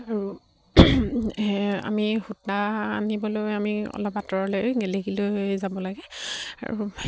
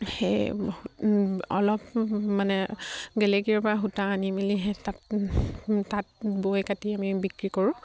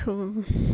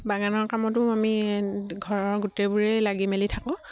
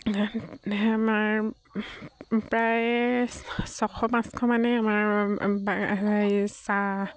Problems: low volume